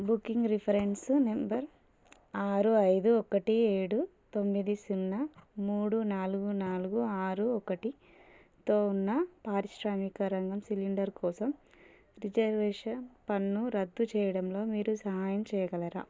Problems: low volume